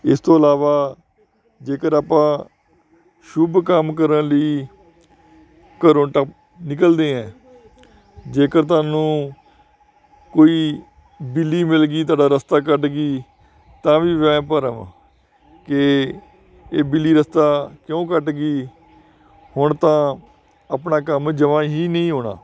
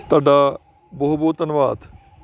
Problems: constant background noise